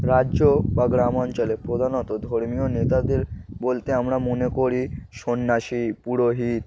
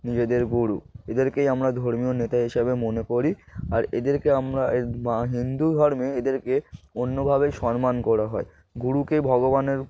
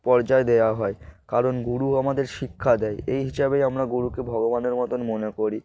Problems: background sounds at intervals